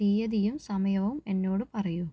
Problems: low volume